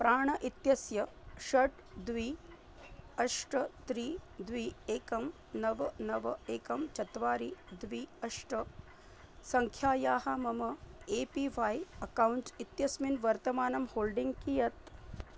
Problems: low volume